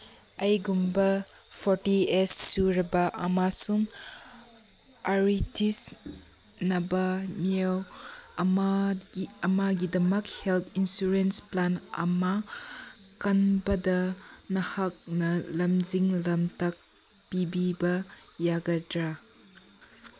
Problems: background sounds at intervals